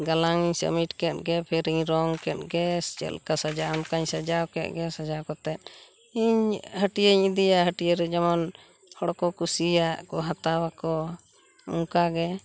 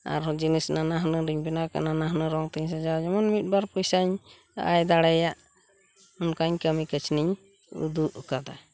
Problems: constant background noise